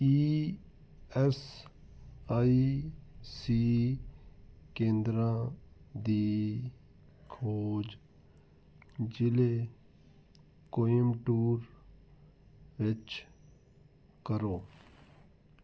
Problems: none marked